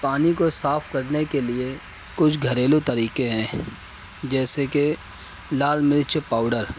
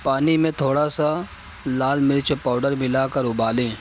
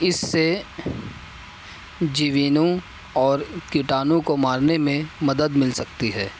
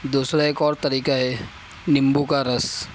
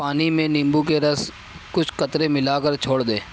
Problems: constant background noise, background conversations at intervals